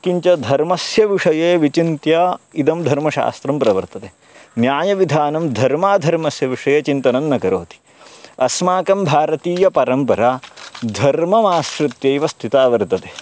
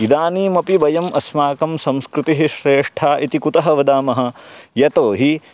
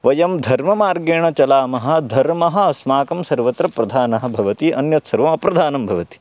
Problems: background sounds at intervals, background conversations at intervals